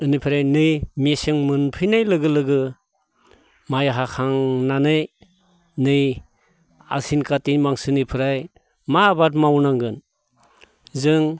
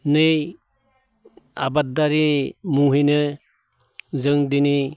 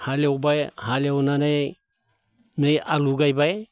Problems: none marked